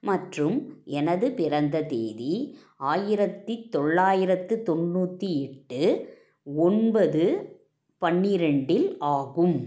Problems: background sounds at intervals